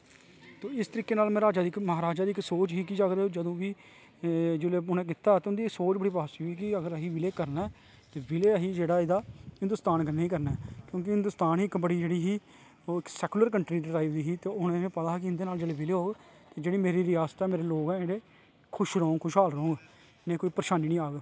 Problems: low volume